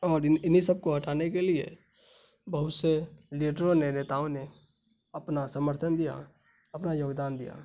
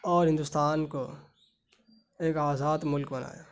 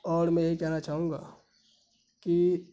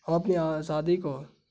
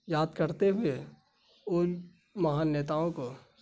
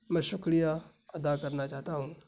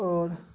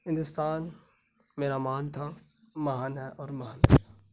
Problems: constant background noise